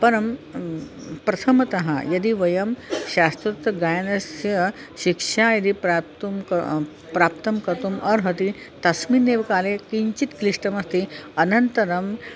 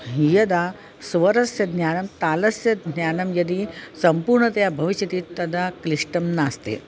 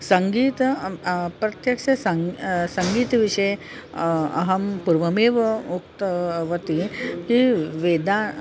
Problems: constant background noise, continuous background conversations